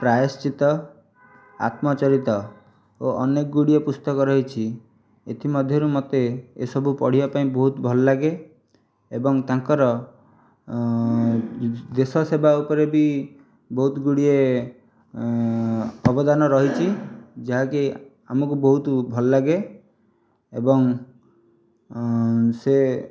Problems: background sounds at intervals